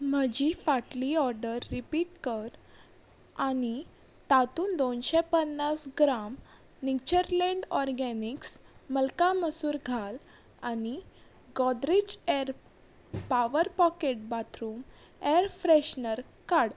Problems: none marked